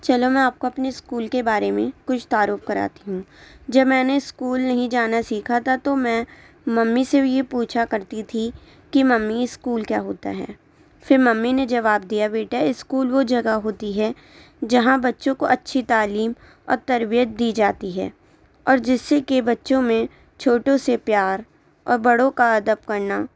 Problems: none marked